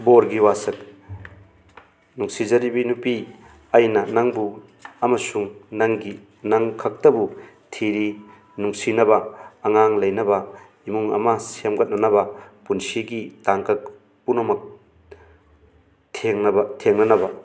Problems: constant background noise